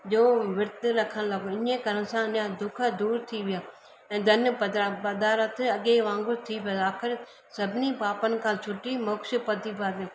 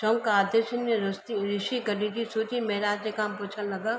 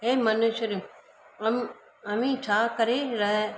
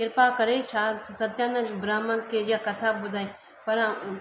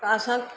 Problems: constant background noise